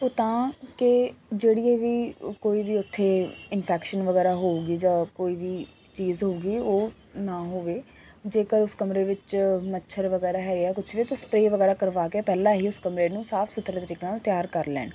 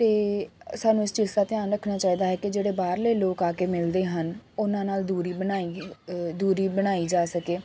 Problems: none marked